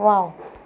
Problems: constant background noise